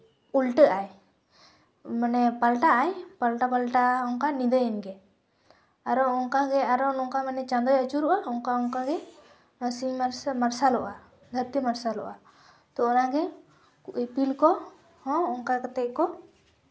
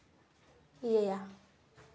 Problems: none marked